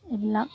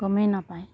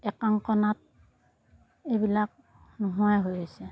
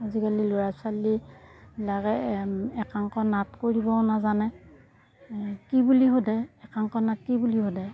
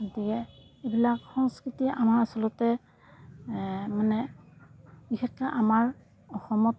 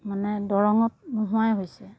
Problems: none marked